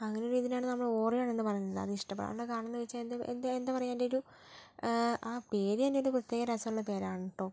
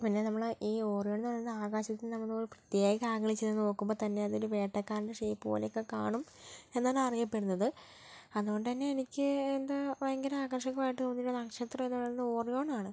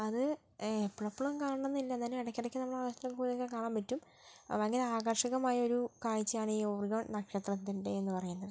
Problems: low volume